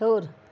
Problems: none marked